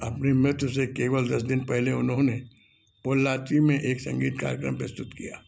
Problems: low volume